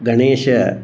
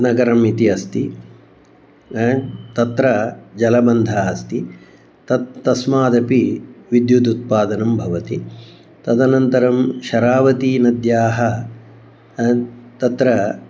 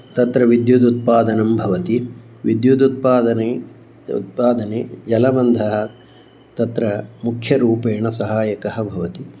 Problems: background sounds at intervals